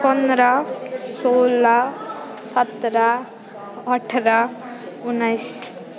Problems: constant background noise